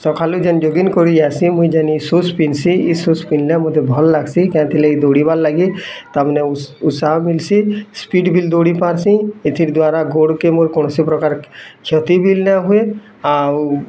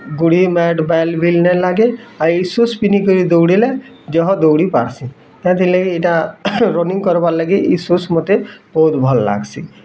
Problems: constant background noise, continuous background conversations